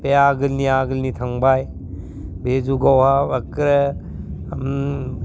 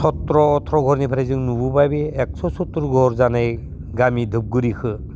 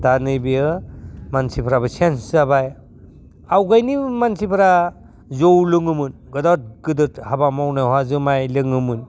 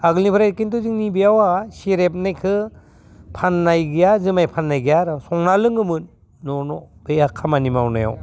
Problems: low volume